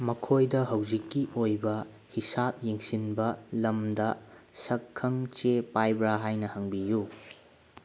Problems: background sounds at intervals